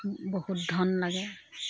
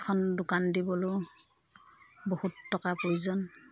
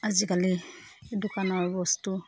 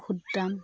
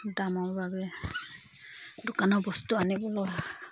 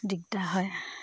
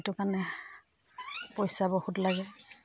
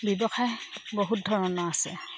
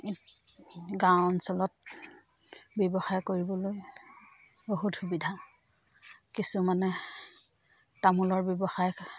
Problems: constant background noise, background conversations at intervals